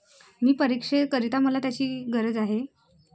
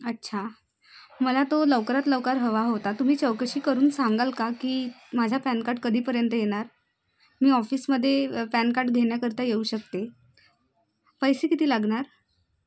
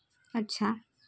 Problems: none marked